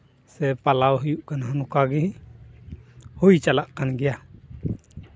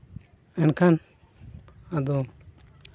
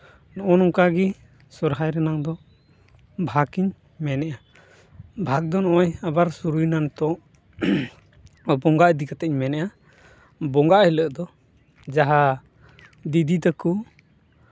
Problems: none marked